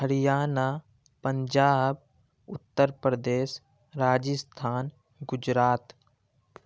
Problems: background sounds at intervals